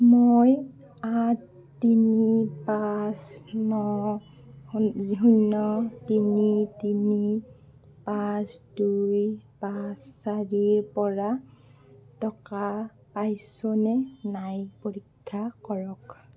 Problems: none marked